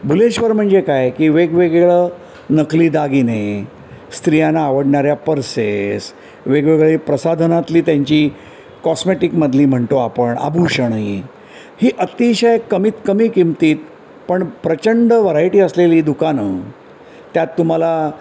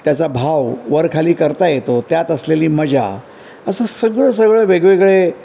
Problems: constant background noise